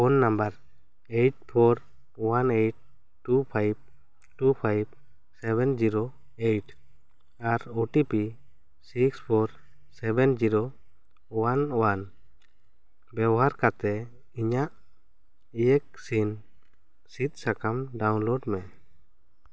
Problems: none marked